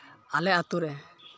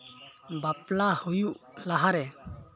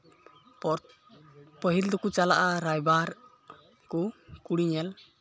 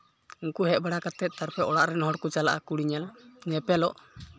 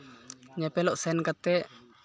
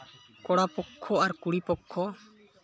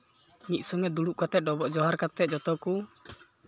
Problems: background sounds at intervals, background conversations at intervals